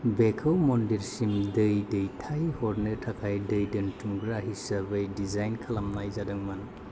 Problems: none marked